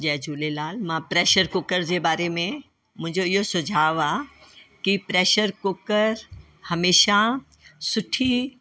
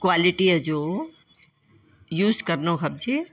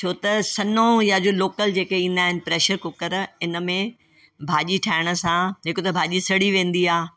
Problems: constant background noise